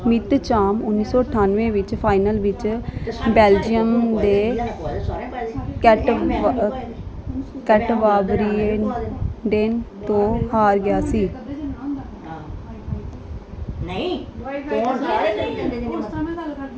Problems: background sounds at intervals, continuous background conversations